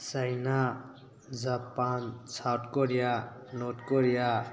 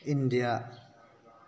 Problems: constant background noise